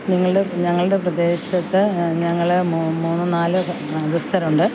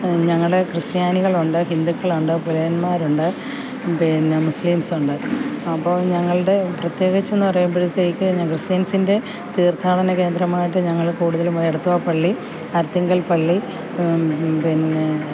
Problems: constant background noise